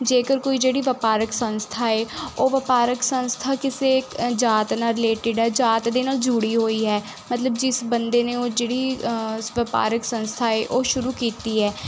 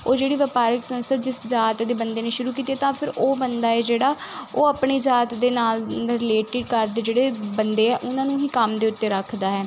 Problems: constant background noise